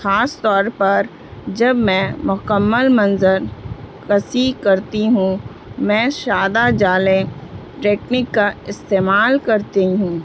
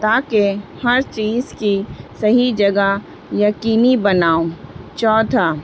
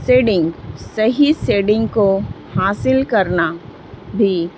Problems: constant background noise, low volume